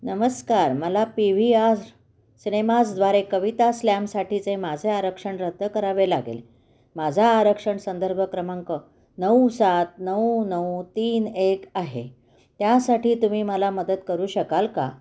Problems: background sounds at intervals, echo